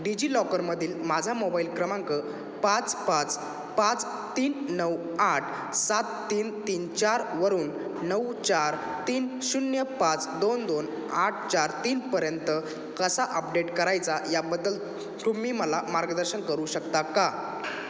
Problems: none marked